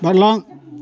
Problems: none marked